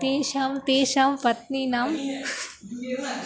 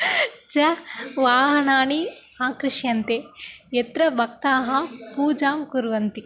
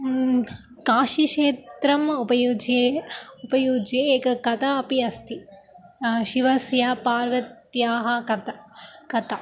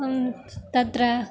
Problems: constant background noise, continuous background conversations